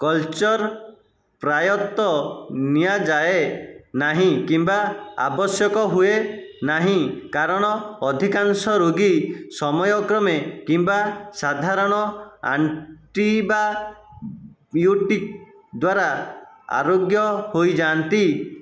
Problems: none marked